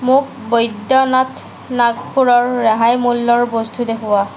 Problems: none marked